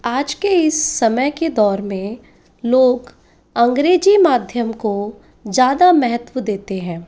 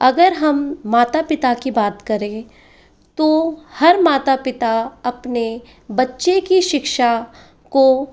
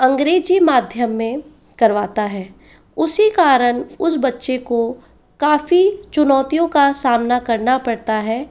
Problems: constant background noise